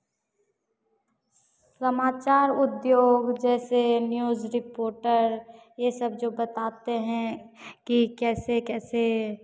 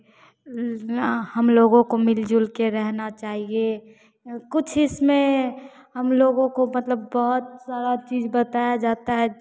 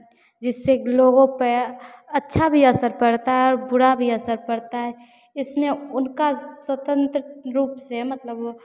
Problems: none marked